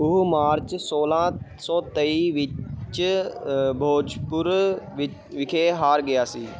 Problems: background sounds at intervals